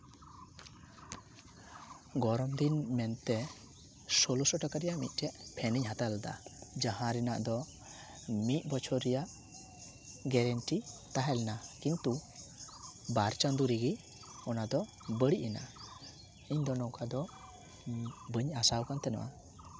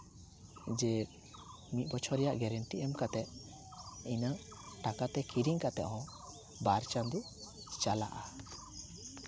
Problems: none marked